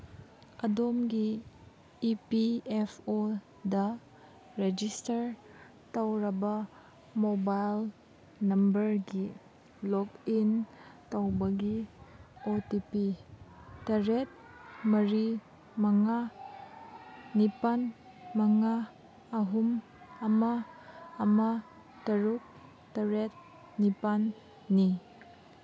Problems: background sounds at intervals